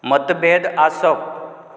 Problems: background sounds at intervals